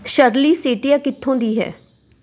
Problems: background sounds at intervals